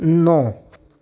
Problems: none marked